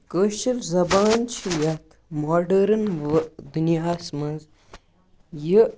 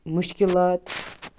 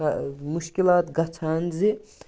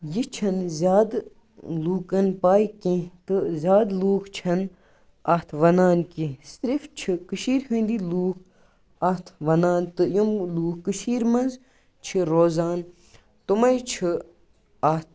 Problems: none marked